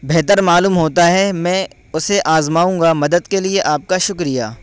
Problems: constant background noise